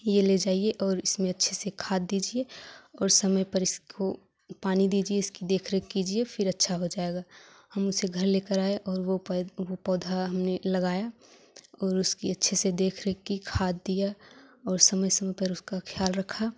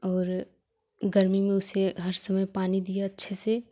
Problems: none marked